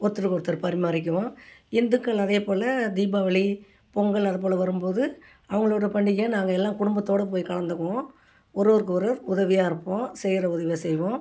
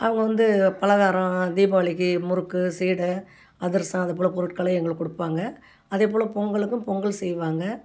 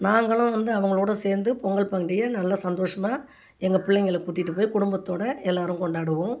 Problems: none marked